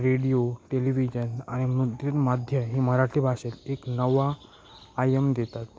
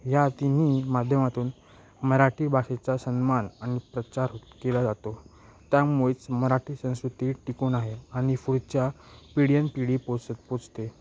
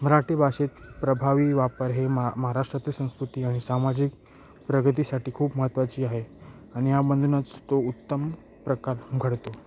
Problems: constant background noise